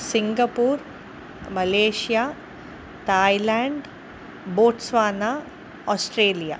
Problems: constant background noise